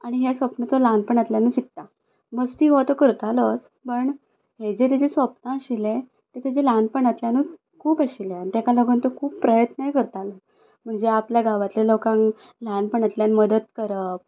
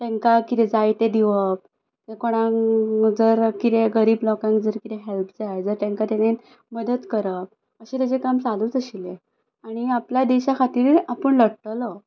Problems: none marked